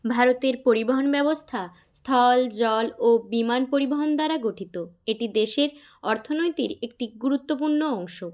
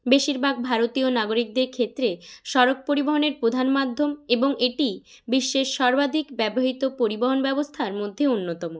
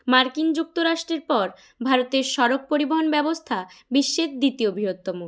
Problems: none marked